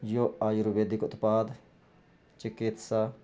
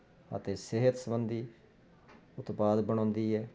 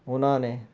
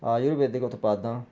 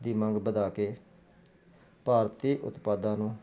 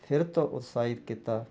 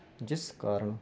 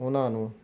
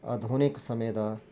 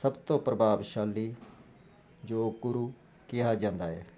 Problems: none marked